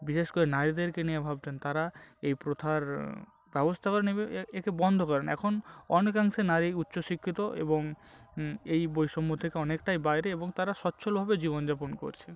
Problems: background sounds at intervals